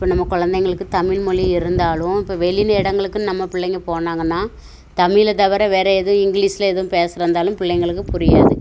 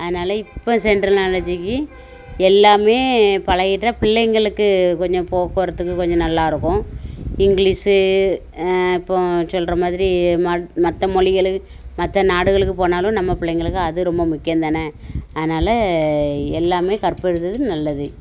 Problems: constant background noise